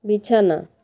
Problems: constant background noise